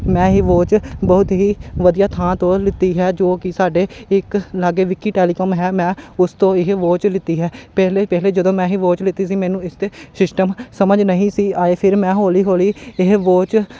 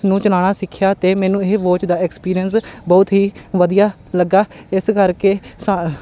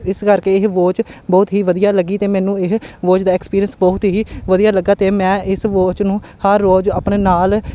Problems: background sounds at intervals